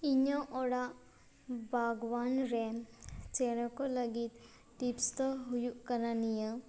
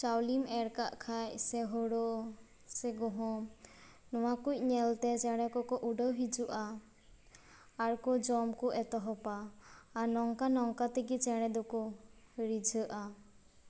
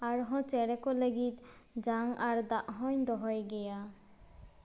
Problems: background sounds at intervals